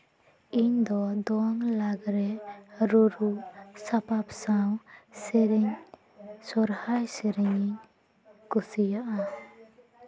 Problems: continuous background conversations